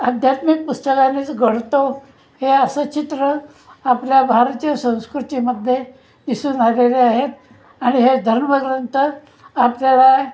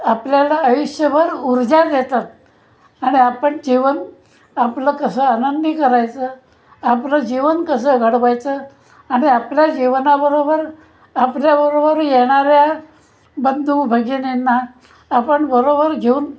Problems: constant background noise, continuous background conversations